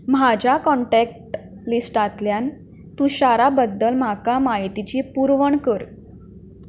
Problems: background sounds at intervals